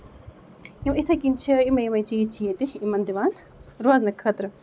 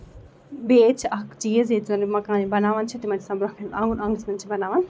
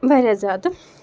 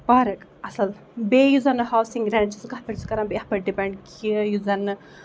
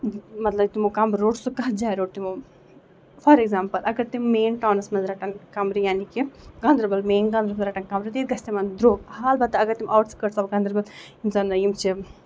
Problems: background sounds at intervals